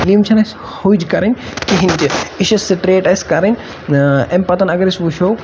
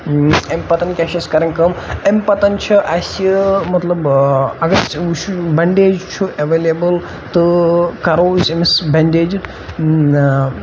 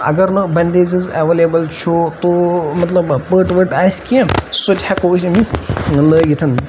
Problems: constant background noise